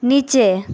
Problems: none marked